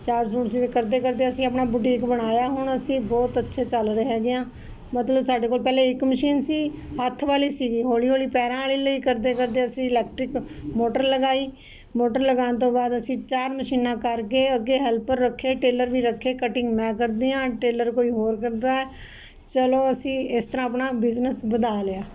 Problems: constant background noise